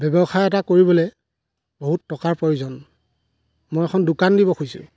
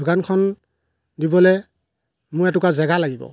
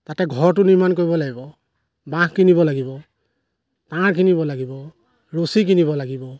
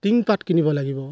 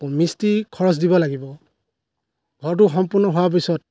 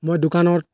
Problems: background sounds at intervals